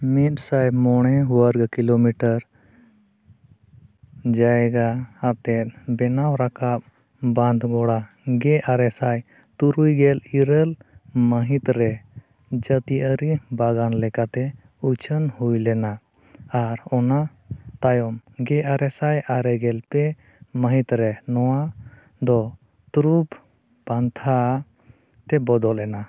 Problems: none marked